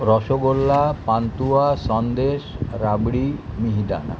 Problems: background sounds at intervals